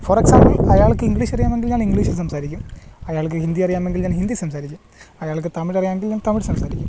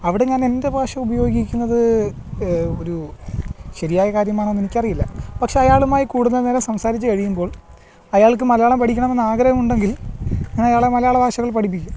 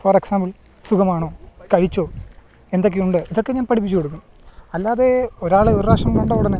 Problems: background sounds at intervals